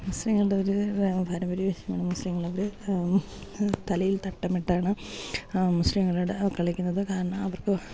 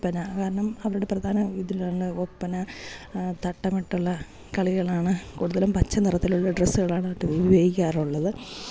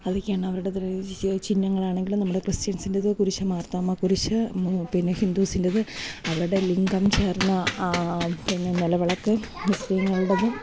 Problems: none marked